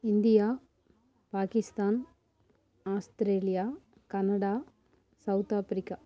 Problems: none marked